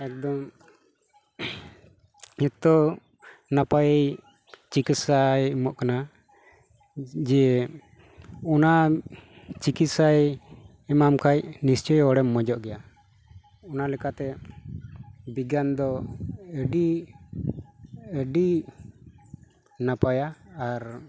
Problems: none marked